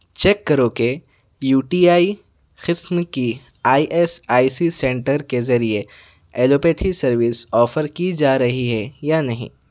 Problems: none marked